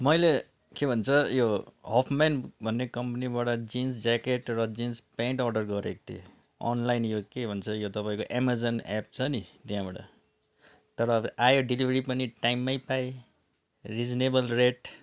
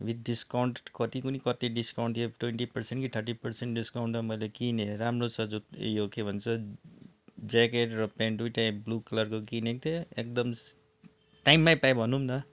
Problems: none marked